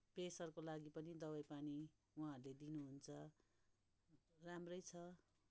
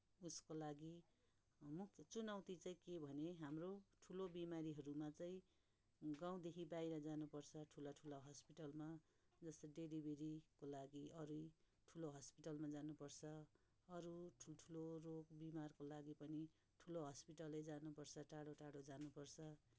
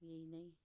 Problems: background sounds at intervals